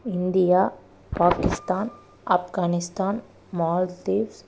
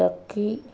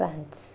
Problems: constant background noise